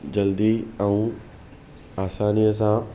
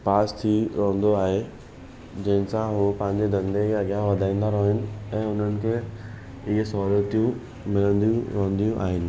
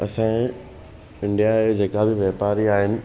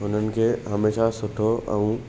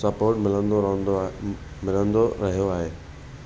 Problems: none marked